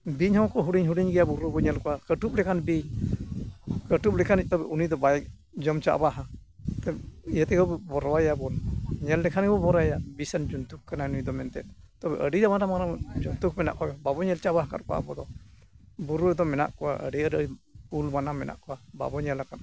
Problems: background sounds at intervals